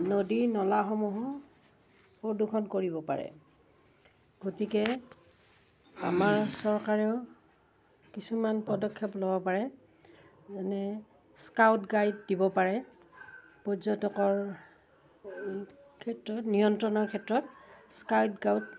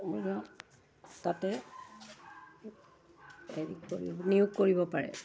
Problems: background sounds at intervals